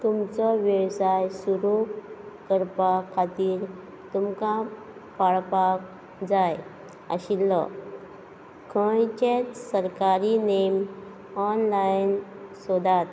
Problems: constant background noise